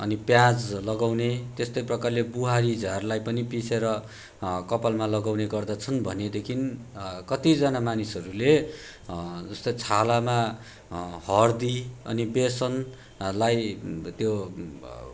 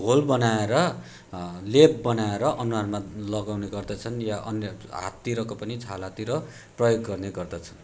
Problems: none marked